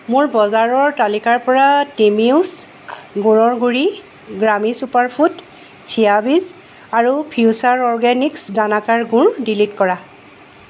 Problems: constant background noise